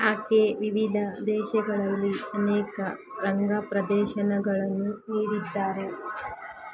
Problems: constant background noise